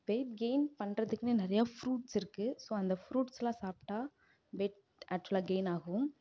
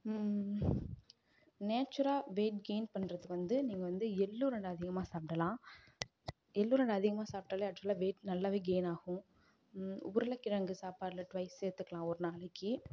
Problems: low volume